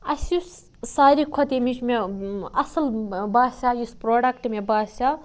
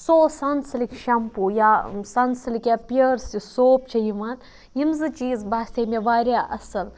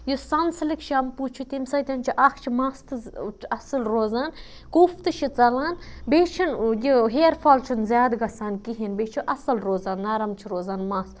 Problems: background sounds at intervals